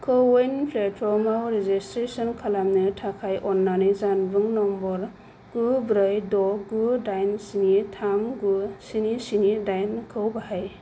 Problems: low volume